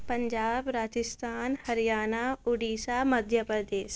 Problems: background sounds at intervals